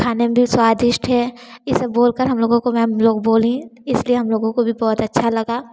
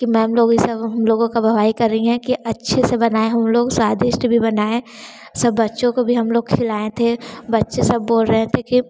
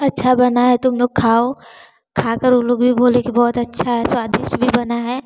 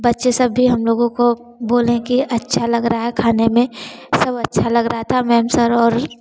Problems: none marked